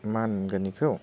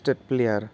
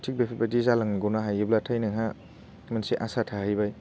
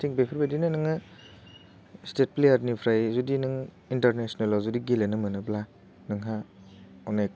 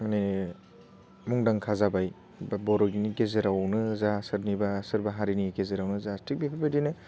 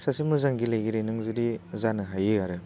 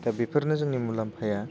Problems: none marked